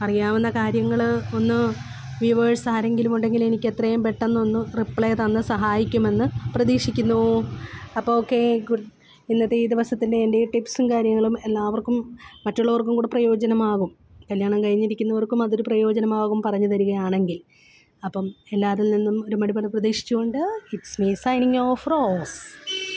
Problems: background sounds at intervals